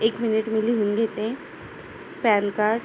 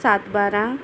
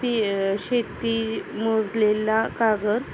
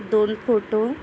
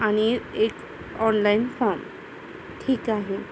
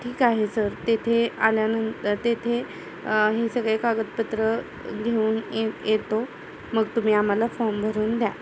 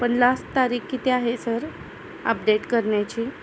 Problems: constant background noise, background conversations at intervals